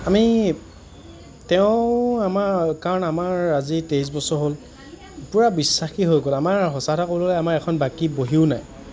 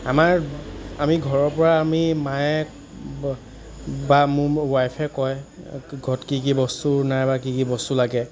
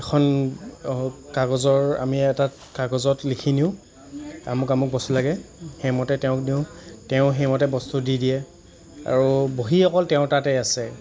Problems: none marked